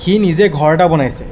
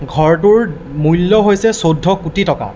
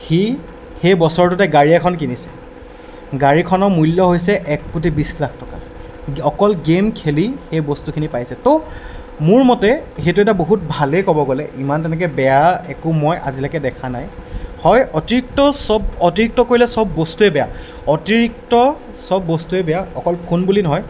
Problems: none marked